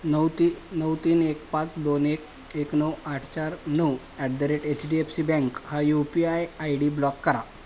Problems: constant background noise